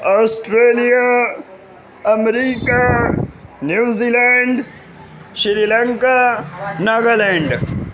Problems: constant background noise